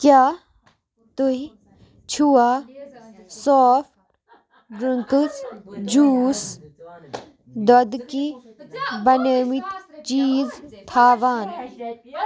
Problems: background sounds at intervals, continuous background conversations